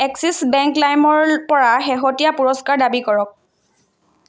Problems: none marked